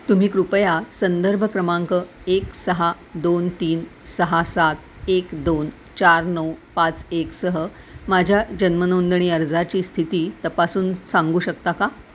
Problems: none marked